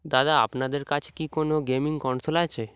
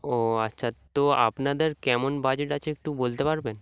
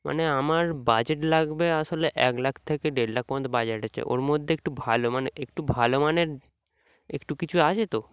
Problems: background sounds at intervals